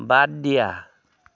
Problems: none marked